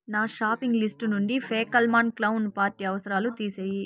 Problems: none marked